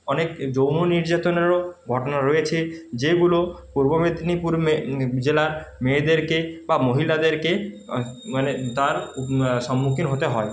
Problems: constant background noise